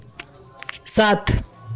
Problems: constant background noise, continuous background conversations